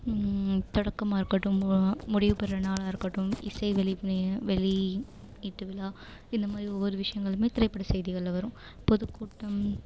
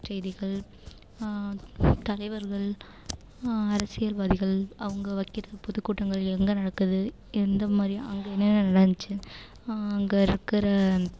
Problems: constant background noise